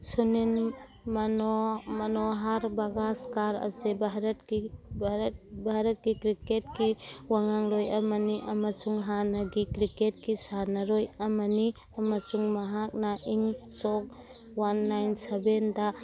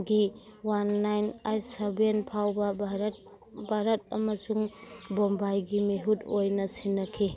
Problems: constant background noise